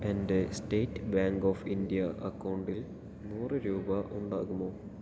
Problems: none marked